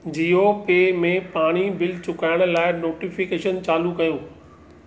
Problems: none marked